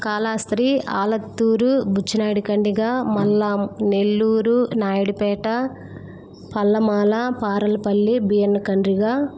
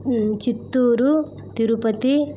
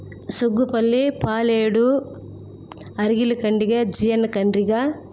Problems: constant background noise